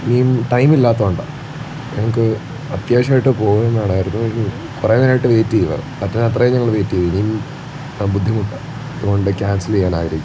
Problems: constant background noise